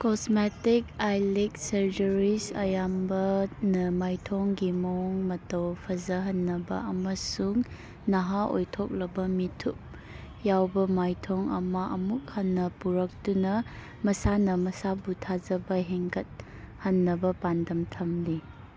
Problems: background sounds at intervals